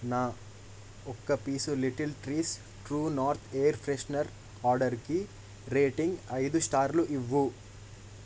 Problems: constant background noise